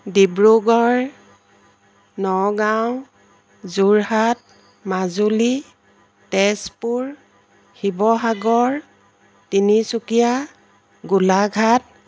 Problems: constant background noise